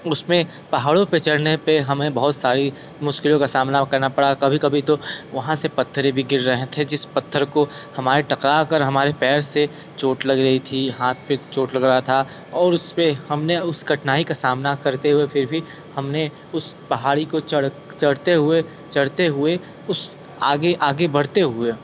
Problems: constant background noise